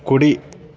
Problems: constant background noise